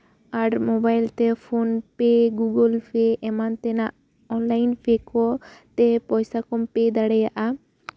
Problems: none marked